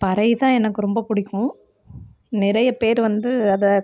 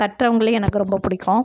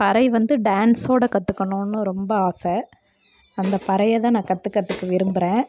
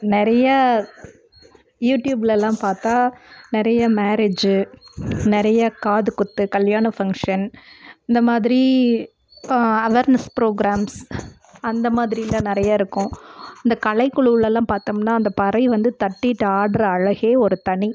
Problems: constant background noise